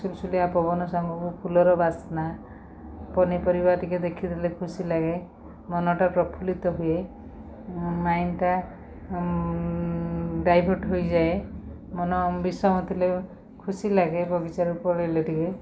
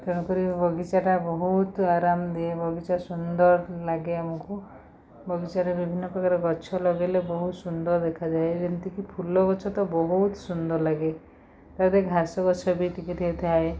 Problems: none marked